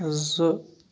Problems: none marked